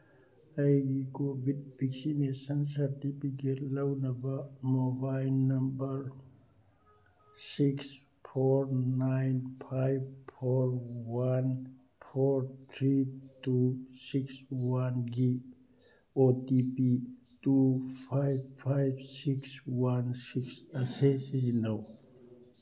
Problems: none marked